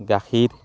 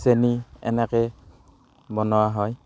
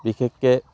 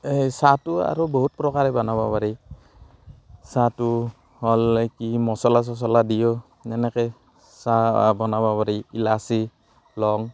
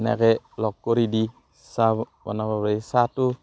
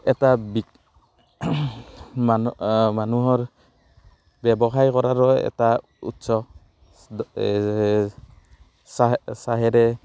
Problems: background sounds at intervals